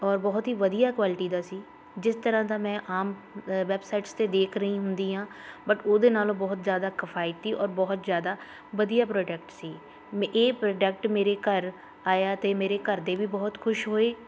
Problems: constant background noise, continuous background conversations